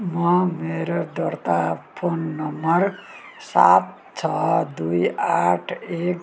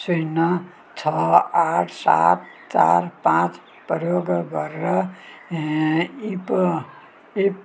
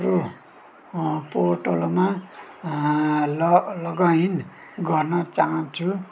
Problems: background sounds at intervals